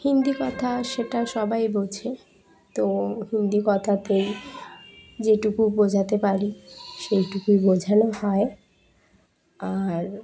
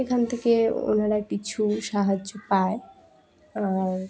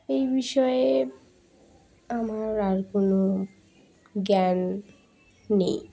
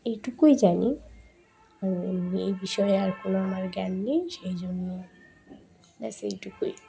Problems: background sounds at intervals